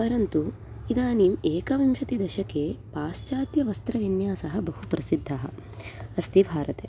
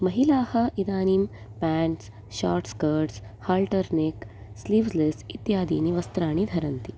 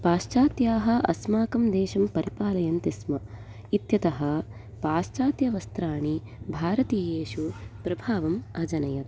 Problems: none marked